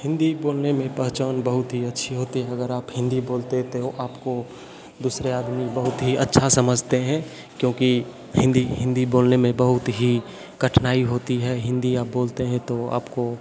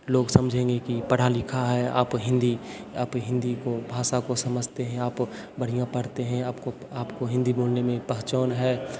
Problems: constant background noise